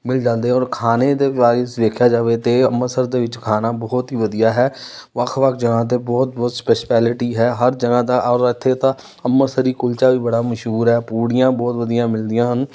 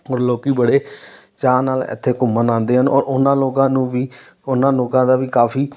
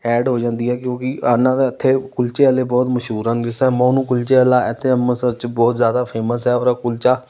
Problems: none marked